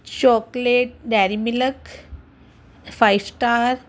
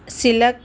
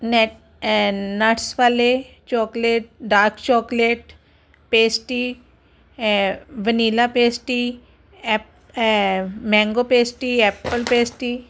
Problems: constant background noise